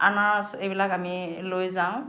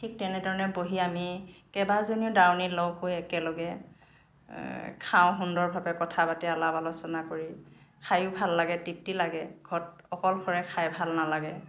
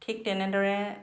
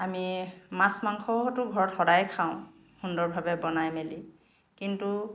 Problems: none marked